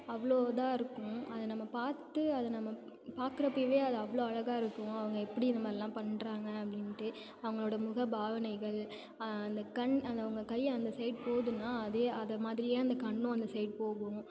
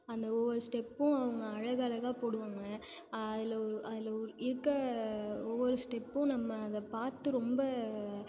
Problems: background sounds at intervals